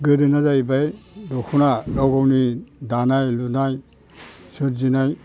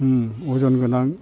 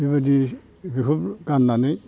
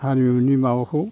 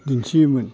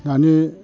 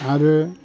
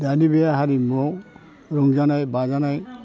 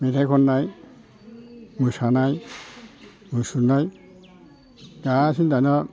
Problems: constant background noise